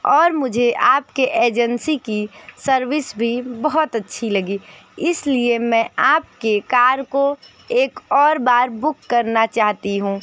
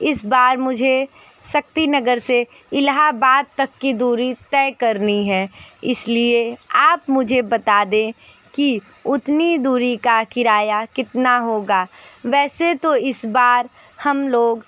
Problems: none marked